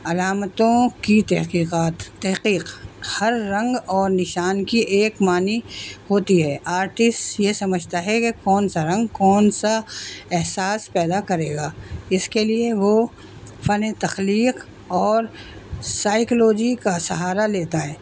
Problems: constant background noise